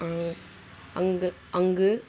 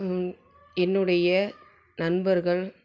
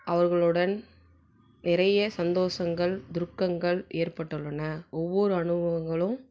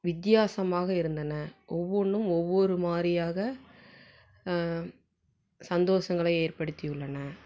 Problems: none marked